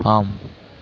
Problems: background sounds at intervals